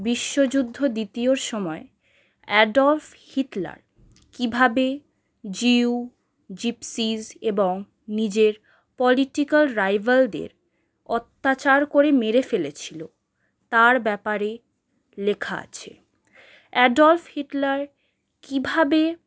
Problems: background sounds at intervals